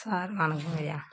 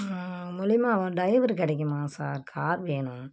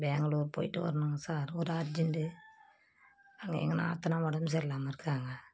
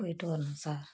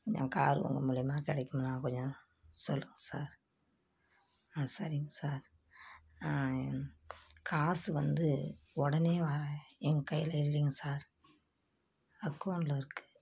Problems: constant background noise